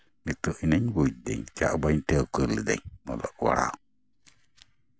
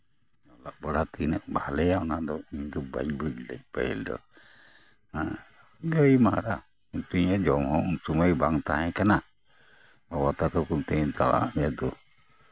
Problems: background sounds at intervals, background conversations at intervals